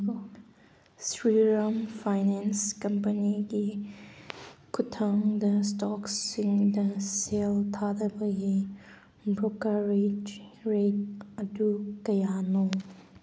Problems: none marked